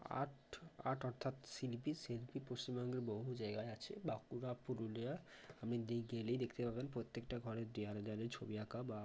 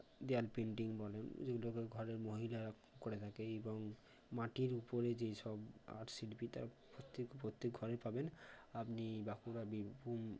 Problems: low volume